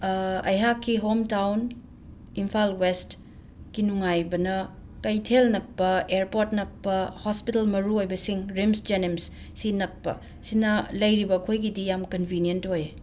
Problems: none marked